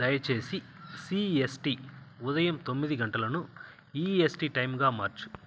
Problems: constant background noise